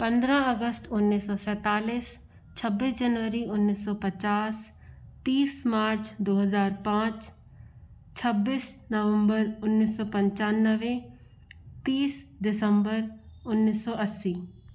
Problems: background sounds at intervals